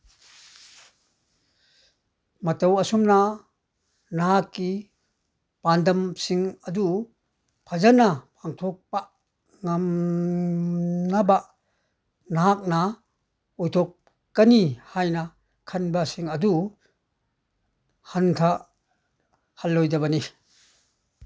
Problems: none marked